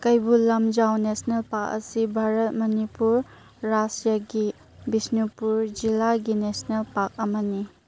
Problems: background sounds at intervals